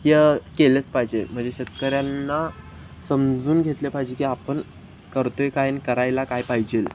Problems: constant background noise